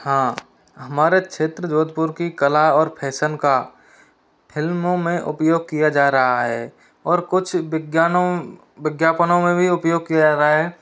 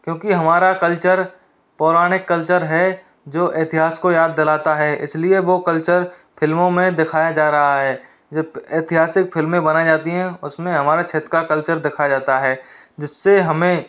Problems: none marked